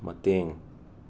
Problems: background sounds at intervals